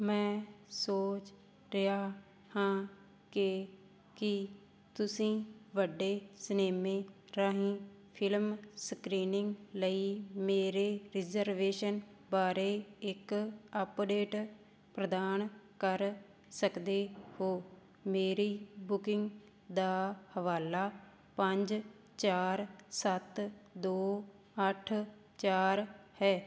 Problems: constant background noise